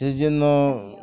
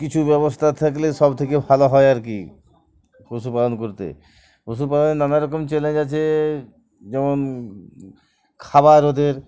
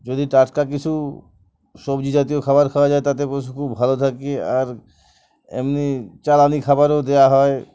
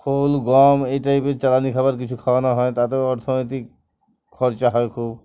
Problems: none marked